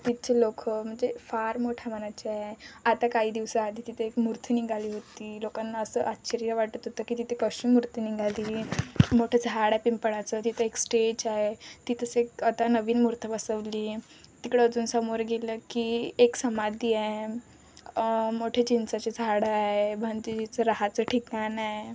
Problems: constant background noise, continuous background conversations